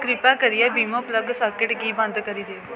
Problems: constant background noise